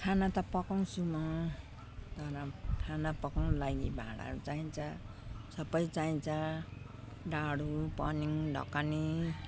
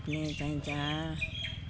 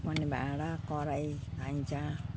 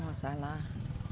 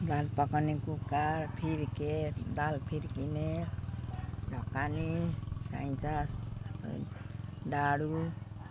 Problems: none marked